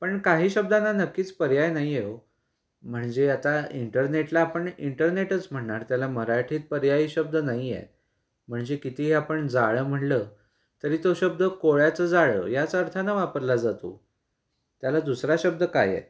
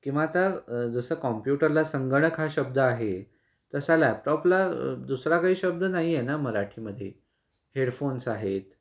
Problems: constant background noise